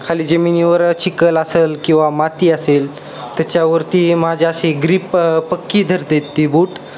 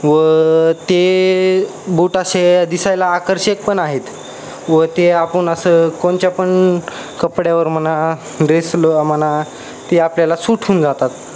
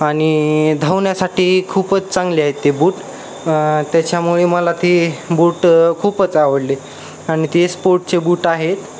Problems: constant background noise, background conversations at intervals